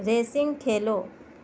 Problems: none marked